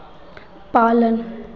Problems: none marked